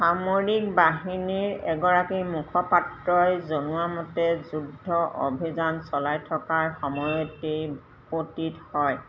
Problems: none marked